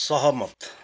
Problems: background sounds at intervals